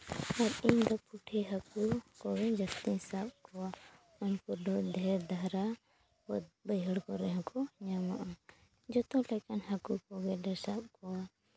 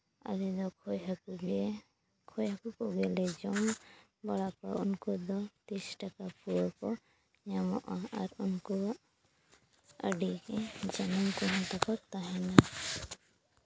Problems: background sounds at intervals